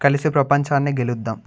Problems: none marked